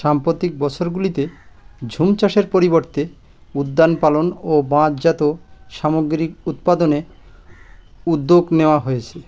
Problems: constant background noise